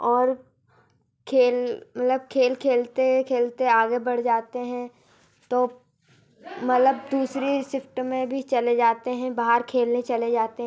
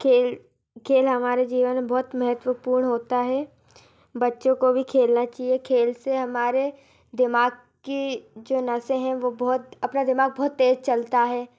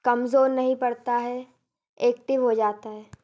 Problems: constant background noise, background conversations at intervals